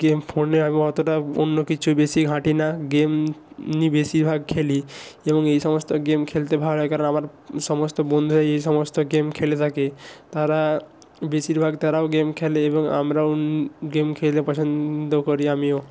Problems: constant background noise